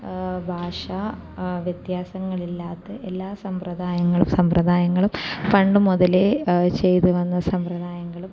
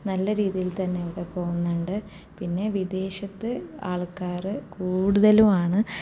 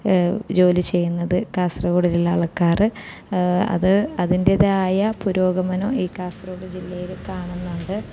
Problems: low volume